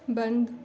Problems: background sounds at intervals